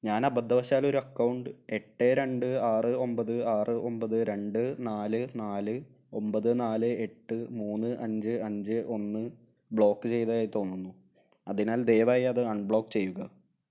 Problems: low volume